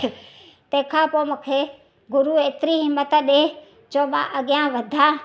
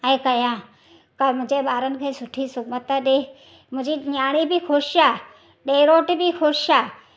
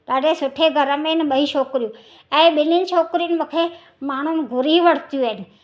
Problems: none marked